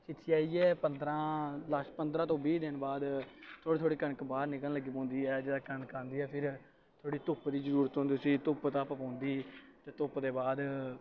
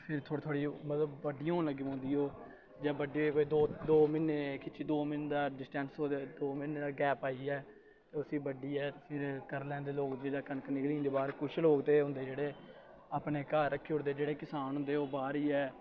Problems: constant background noise